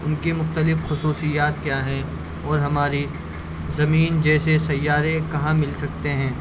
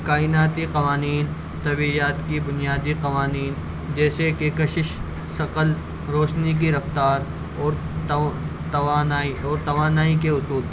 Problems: constant background noise, low volume